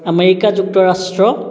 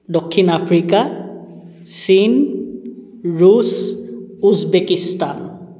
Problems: background conversations at intervals